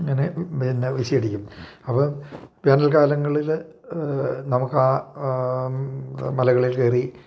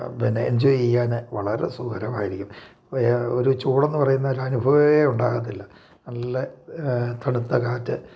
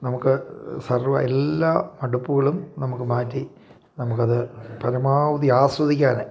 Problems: none marked